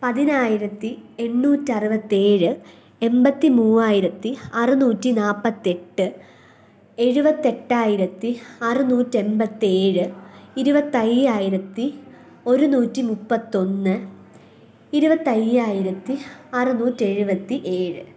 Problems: none marked